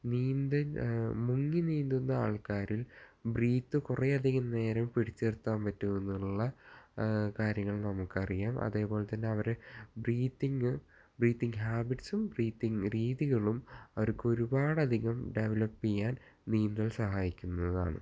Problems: low volume